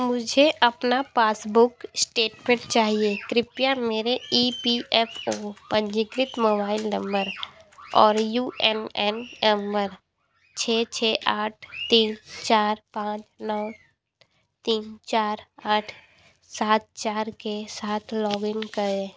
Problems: background sounds at intervals